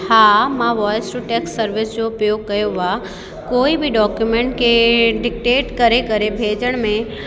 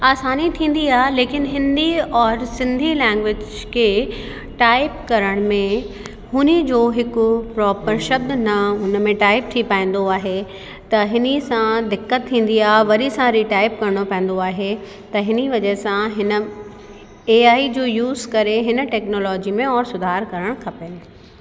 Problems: constant background noise, echo